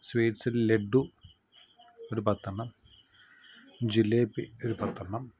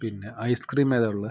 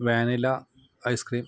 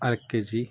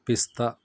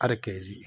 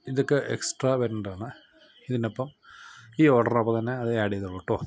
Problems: background sounds at intervals, low volume